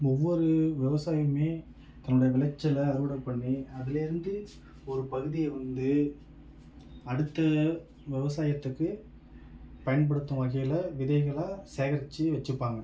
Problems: none marked